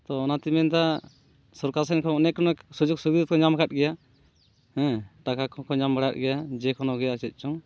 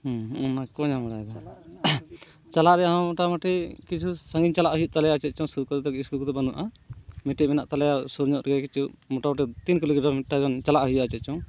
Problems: background sounds at intervals